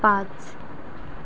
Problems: none marked